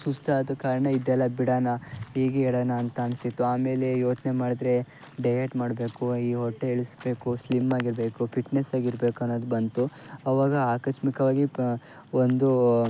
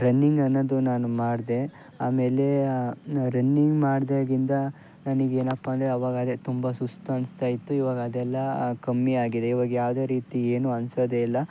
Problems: background sounds at intervals